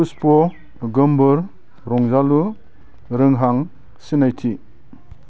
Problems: none marked